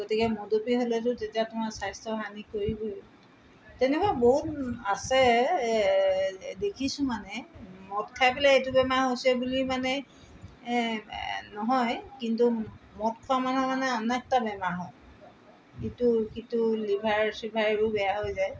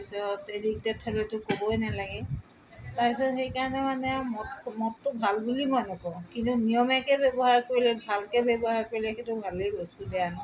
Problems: background sounds at intervals